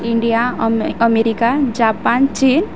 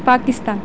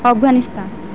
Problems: constant background noise, background conversations at intervals